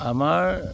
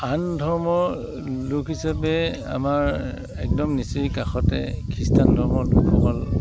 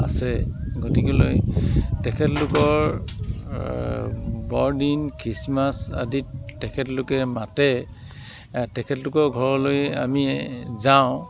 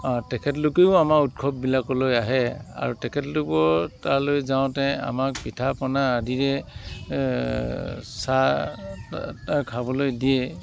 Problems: constant background noise